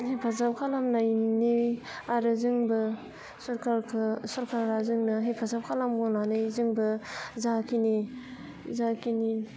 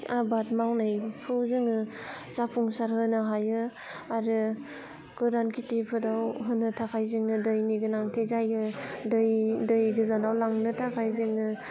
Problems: constant background noise